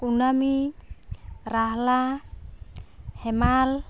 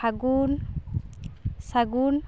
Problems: none marked